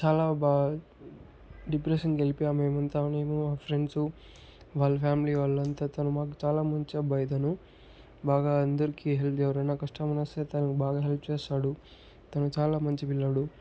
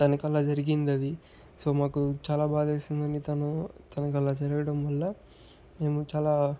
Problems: background sounds at intervals, low volume